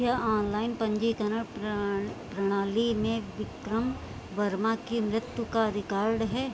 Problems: constant background noise